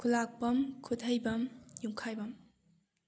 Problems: low volume